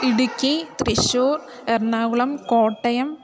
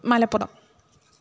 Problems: background conversations at intervals